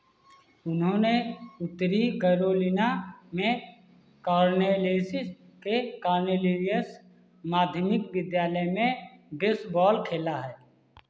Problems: constant background noise